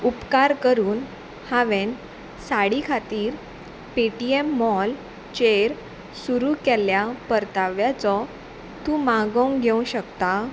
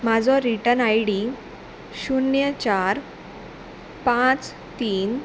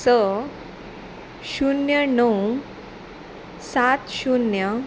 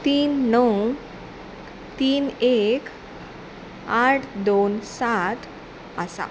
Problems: constant background noise